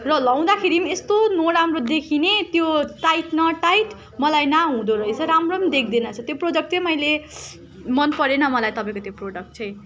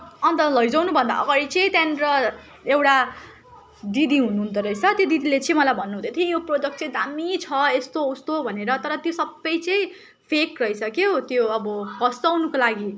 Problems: constant background noise, continuous background conversations